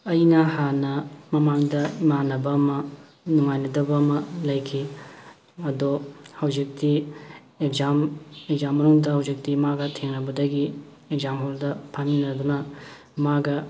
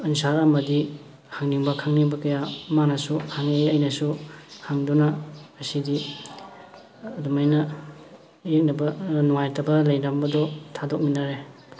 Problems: background sounds at intervals, background conversations at intervals